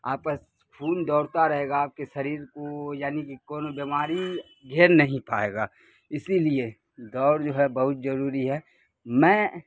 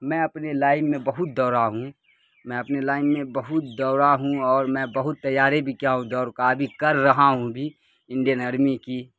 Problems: constant background noise